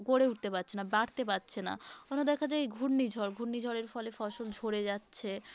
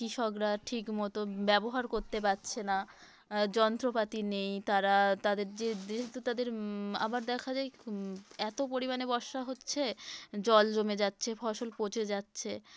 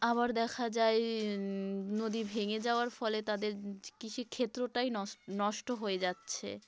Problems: constant background noise